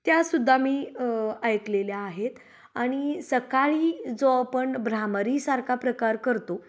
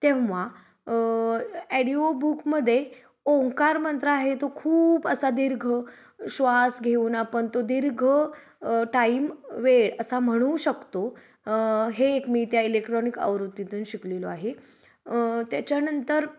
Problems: none marked